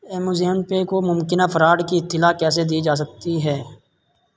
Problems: constant background noise